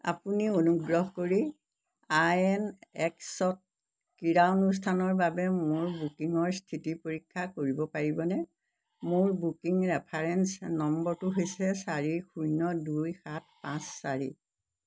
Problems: constant background noise